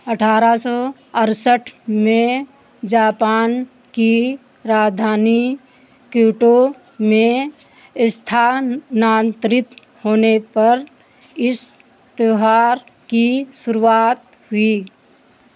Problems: constant background noise, background conversations at intervals